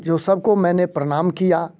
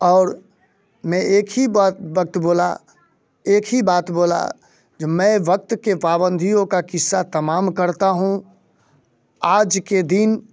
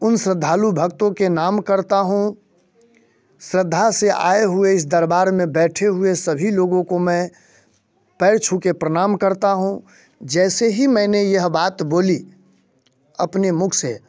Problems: constant background noise